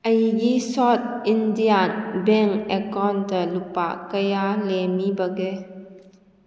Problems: echo